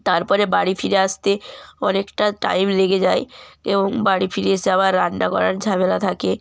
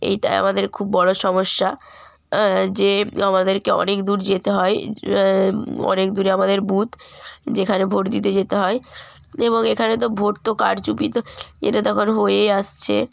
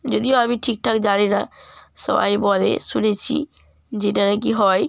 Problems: background sounds at intervals